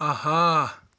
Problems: none marked